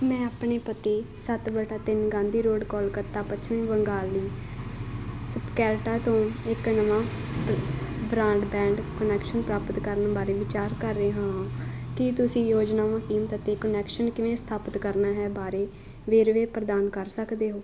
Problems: constant background noise